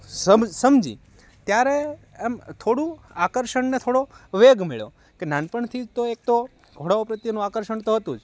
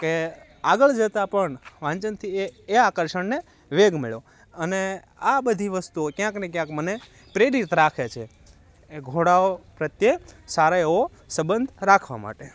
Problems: constant background noise